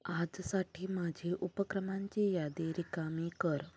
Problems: background sounds at intervals, low volume